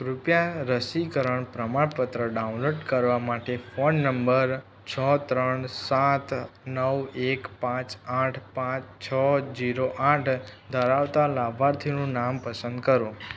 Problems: background sounds at intervals